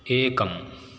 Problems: none marked